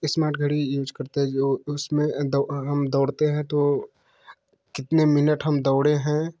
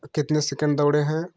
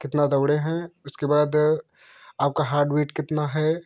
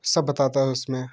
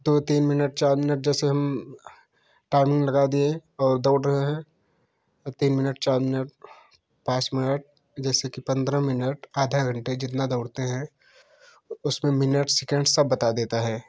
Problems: constant background noise